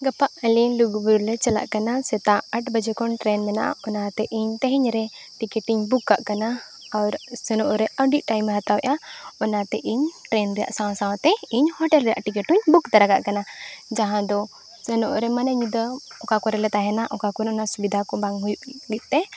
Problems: none marked